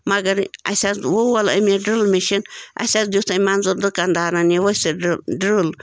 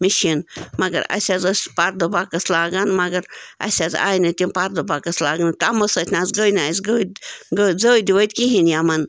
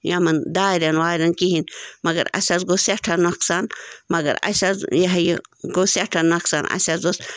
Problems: constant background noise